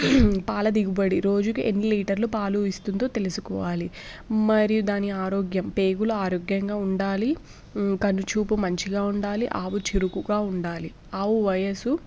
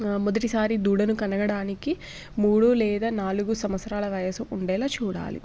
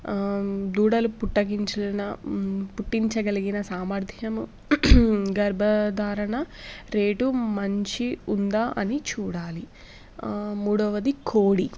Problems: none marked